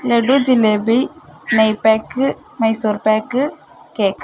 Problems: none marked